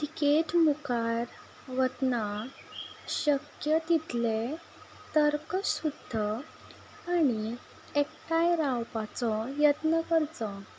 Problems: background sounds at intervals